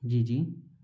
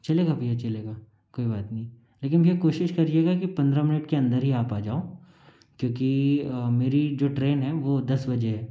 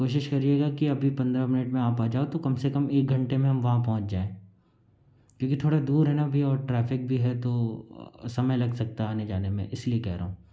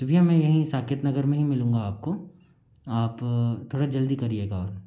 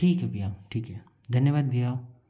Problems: constant background noise